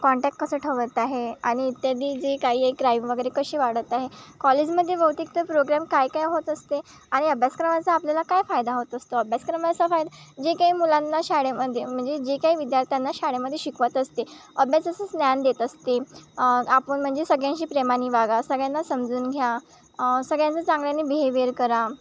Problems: constant background noise